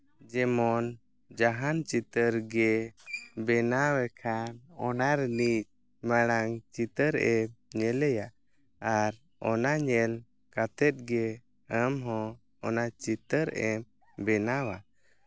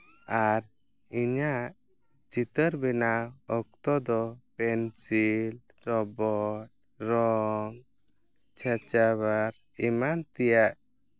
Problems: background sounds at intervals